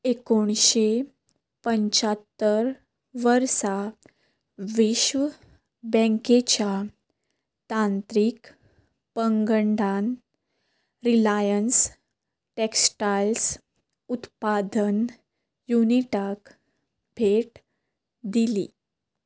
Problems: background sounds at intervals